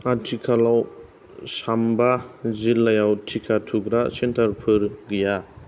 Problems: none marked